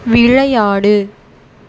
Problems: constant background noise